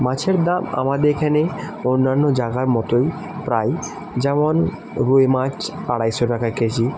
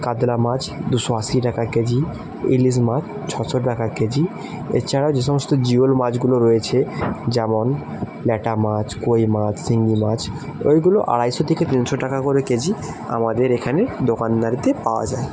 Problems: constant background noise